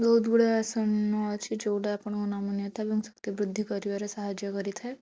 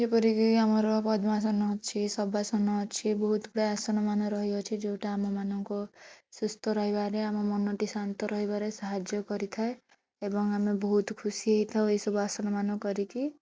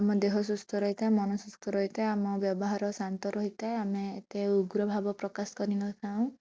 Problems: none marked